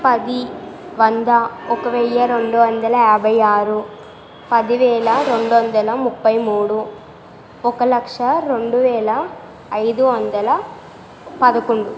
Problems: constant background noise